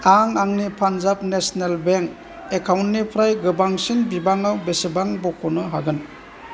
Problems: constant background noise